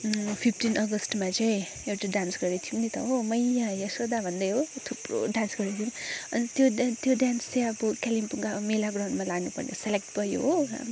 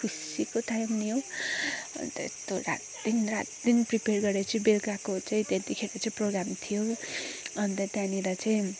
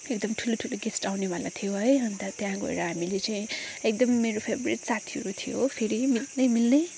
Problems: background sounds at intervals